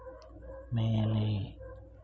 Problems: low volume